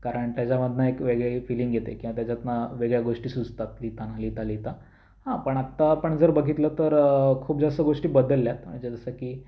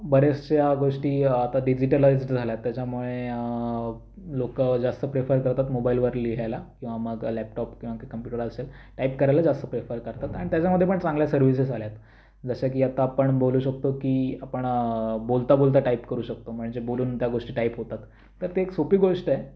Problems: constant background noise